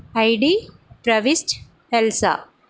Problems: none marked